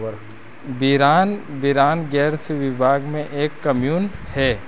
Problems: none marked